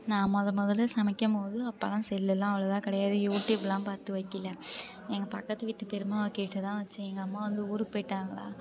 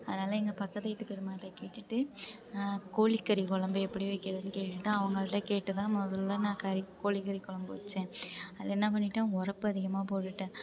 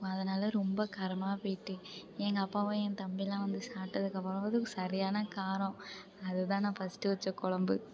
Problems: none marked